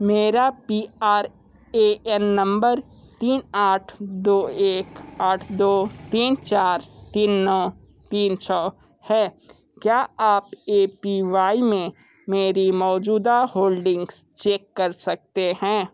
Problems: constant background noise